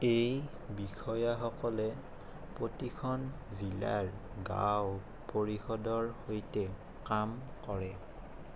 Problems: constant background noise